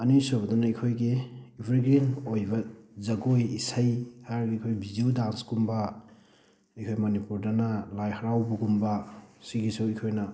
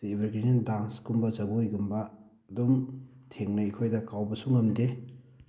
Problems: background sounds at intervals